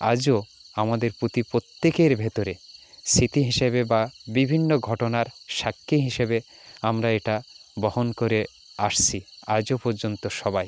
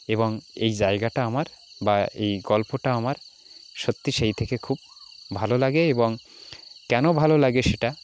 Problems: background sounds at intervals, continuous background conversations